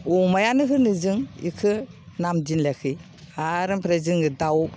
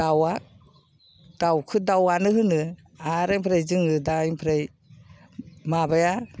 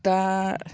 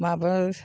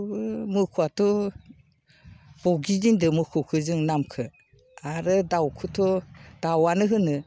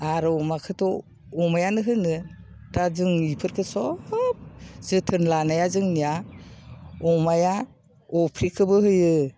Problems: none marked